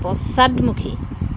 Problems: none marked